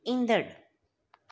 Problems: none marked